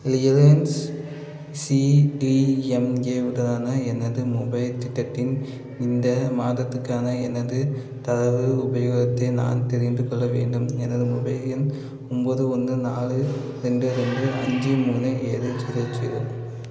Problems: constant background noise